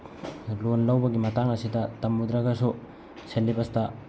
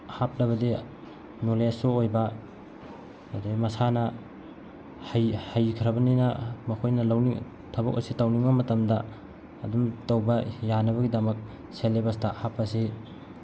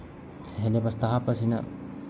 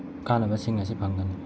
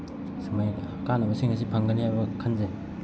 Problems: constant background noise